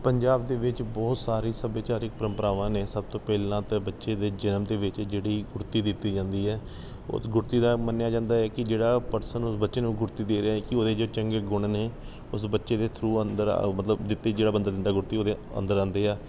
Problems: background sounds at intervals